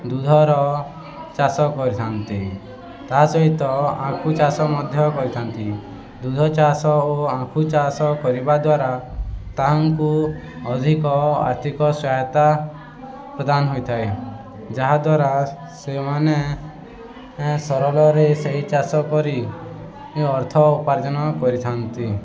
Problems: constant background noise, continuous background conversations